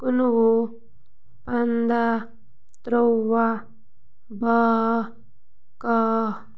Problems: none marked